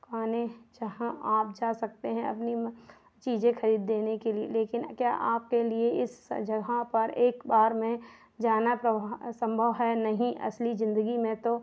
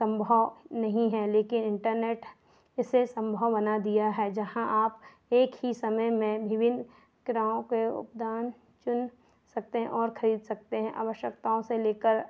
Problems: none marked